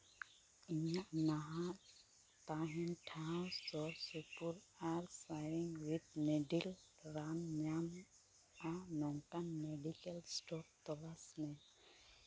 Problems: none marked